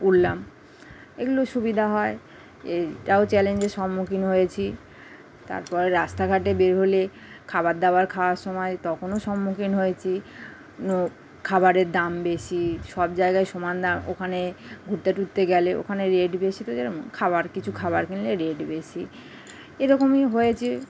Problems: constant background noise